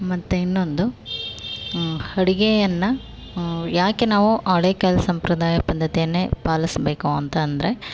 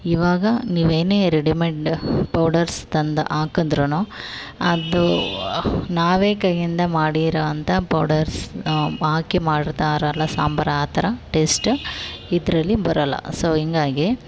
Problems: none marked